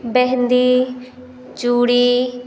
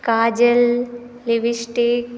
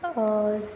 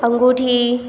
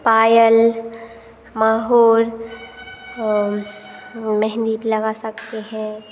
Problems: none marked